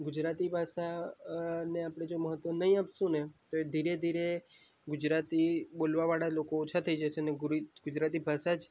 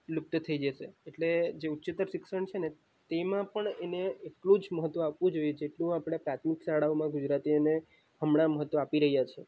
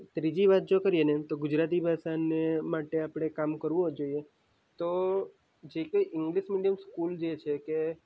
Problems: none marked